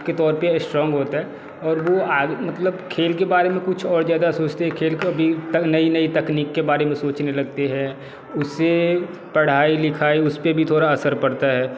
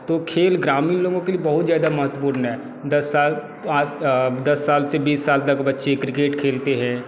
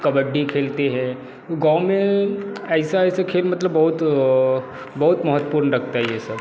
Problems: constant background noise, background conversations at intervals